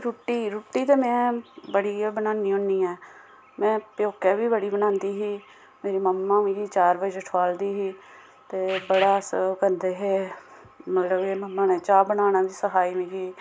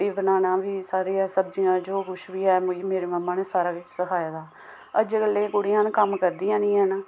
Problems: none marked